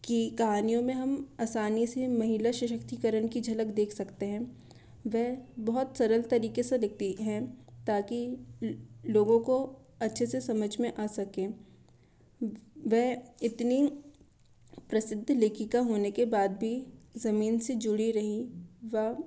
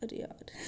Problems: constant background noise